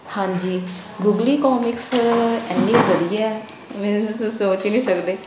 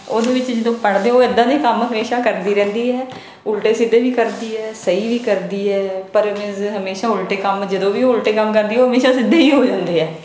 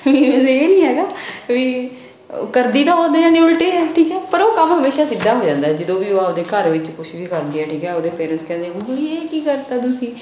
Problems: background sounds at intervals, background conversations at intervals